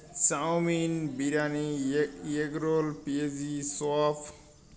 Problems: constant background noise